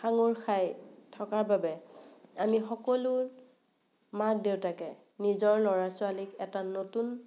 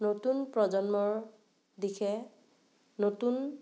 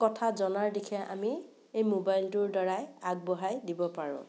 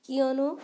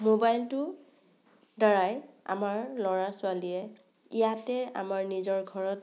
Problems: none marked